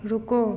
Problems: constant background noise